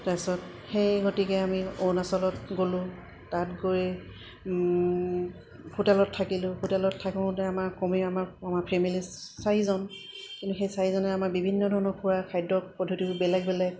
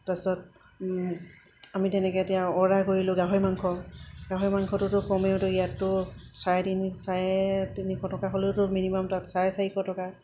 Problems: constant background noise